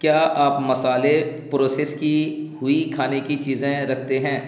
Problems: constant background noise